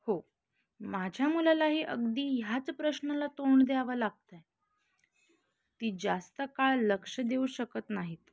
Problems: constant background noise